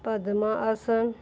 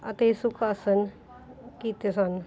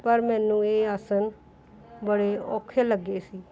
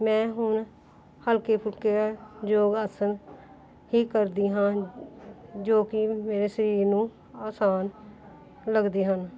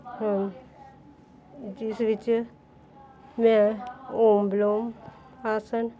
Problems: background sounds at intervals